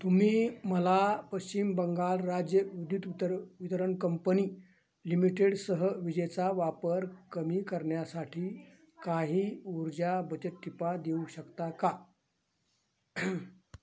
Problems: constant background noise, background conversations at intervals, low volume